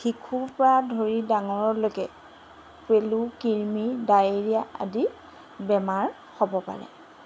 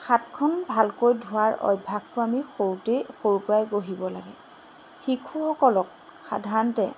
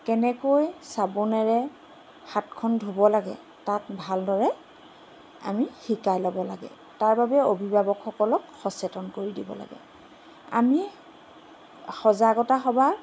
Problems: none marked